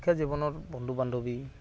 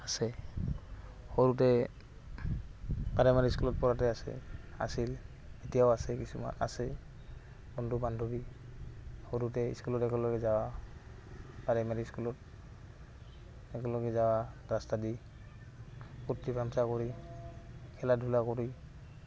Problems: background sounds at intervals, background conversations at intervals